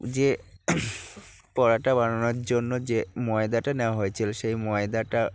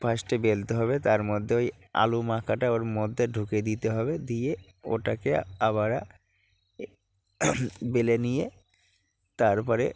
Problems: background sounds at intervals, low volume